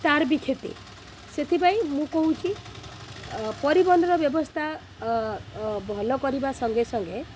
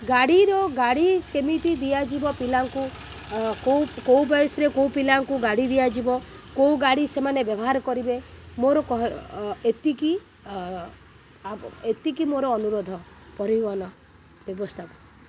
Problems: constant background noise